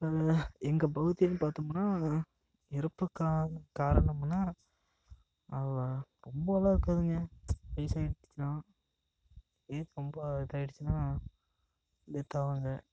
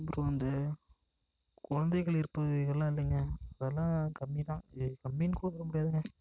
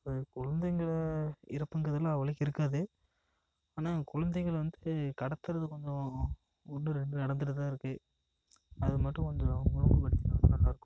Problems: echo